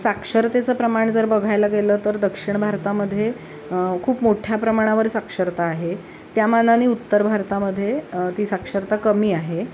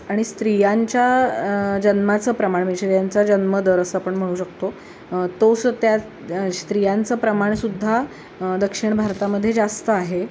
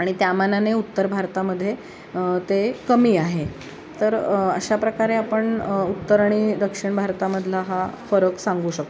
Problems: constant background noise